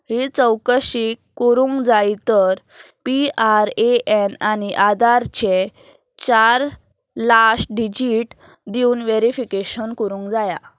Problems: none marked